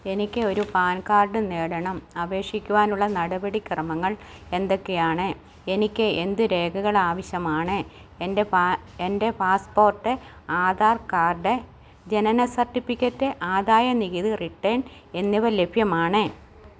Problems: none marked